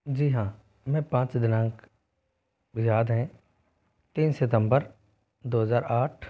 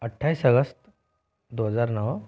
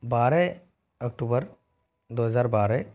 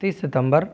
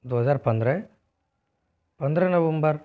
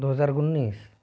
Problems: none marked